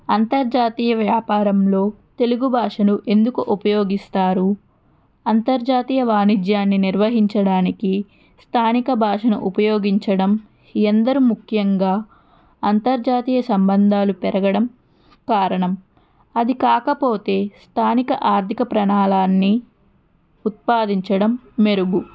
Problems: background conversations at intervals